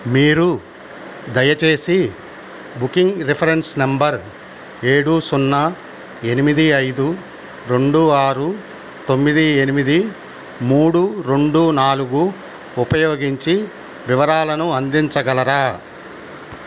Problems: constant background noise